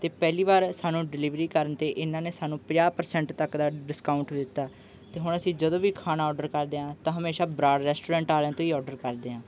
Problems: background sounds at intervals